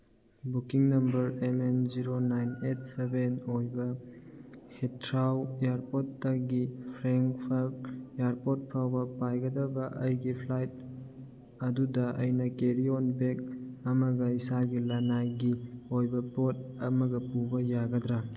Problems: none marked